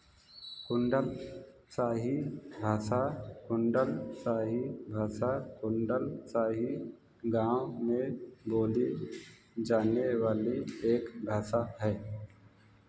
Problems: background sounds at intervals